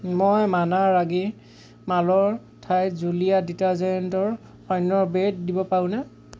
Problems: none marked